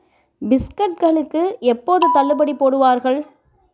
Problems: background sounds at intervals